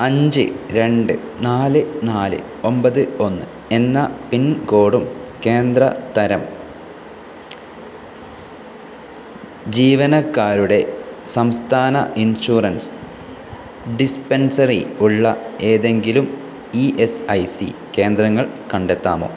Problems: none marked